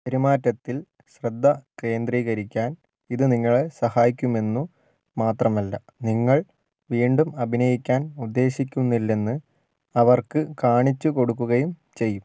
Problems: low volume